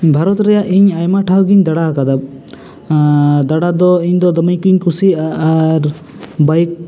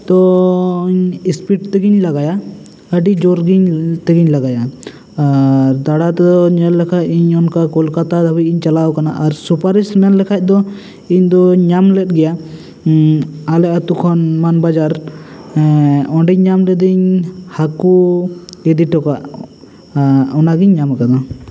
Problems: constant background noise